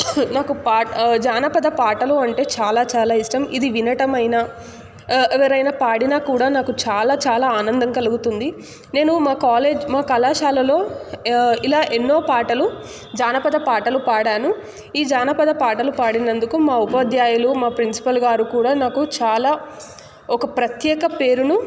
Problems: constant background noise